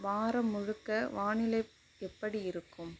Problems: low volume